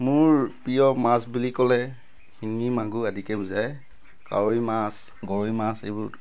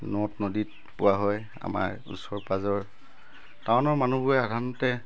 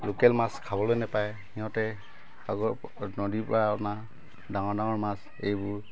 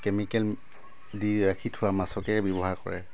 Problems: constant background noise